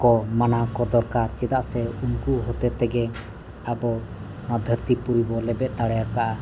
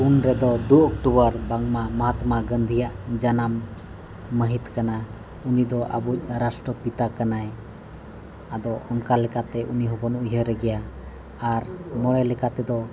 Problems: background sounds at intervals